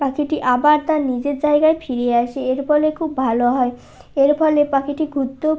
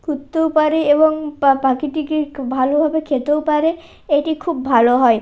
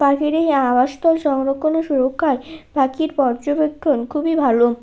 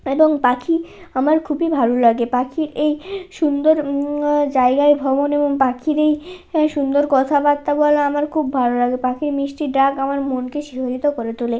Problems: background sounds at intervals